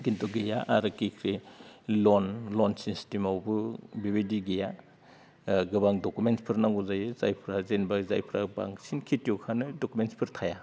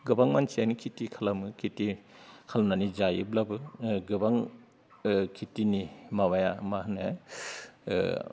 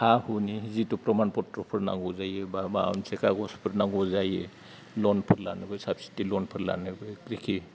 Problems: low volume